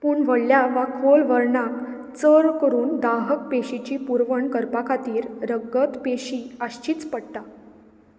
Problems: none marked